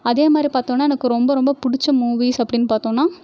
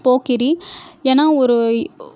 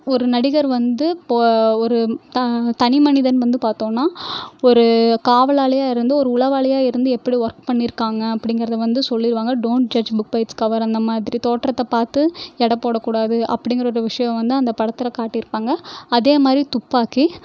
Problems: none marked